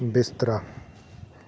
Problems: background conversations at intervals